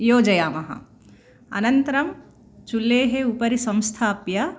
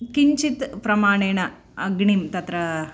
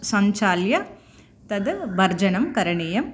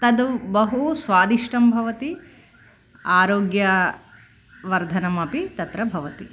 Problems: none marked